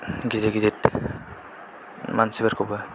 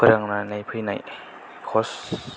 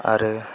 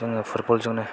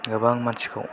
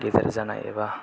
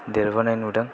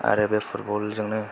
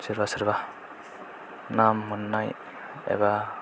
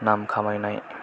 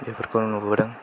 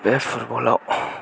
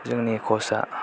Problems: low volume